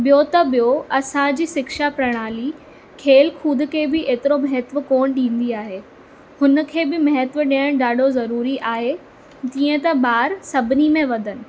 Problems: constant background noise